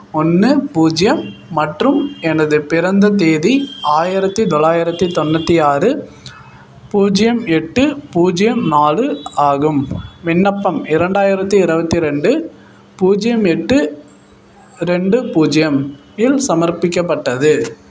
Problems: none marked